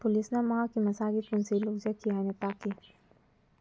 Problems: low volume